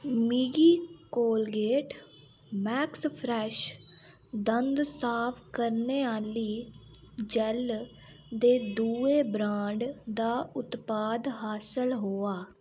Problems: background sounds at intervals